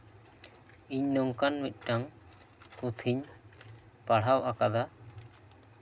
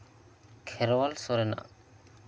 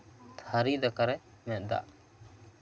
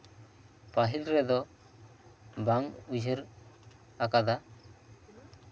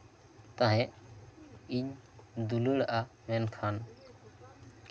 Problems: constant background noise, background conversations at intervals